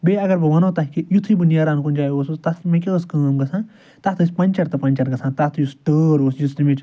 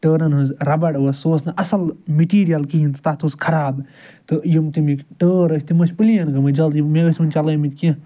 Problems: none marked